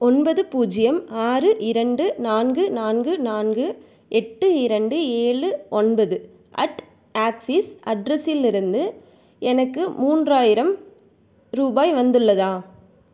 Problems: none marked